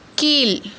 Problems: none marked